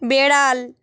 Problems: none marked